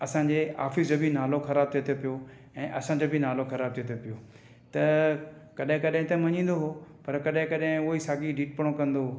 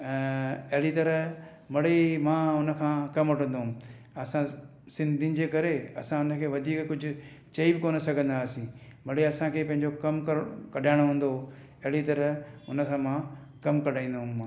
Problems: none marked